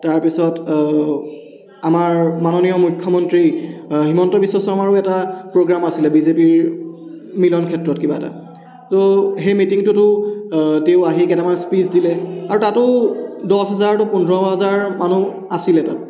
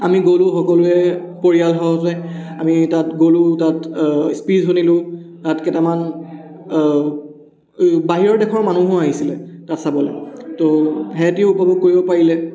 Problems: none marked